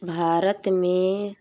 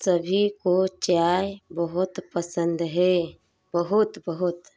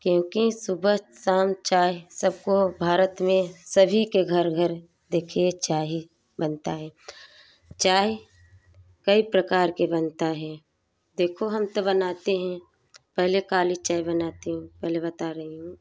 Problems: background sounds at intervals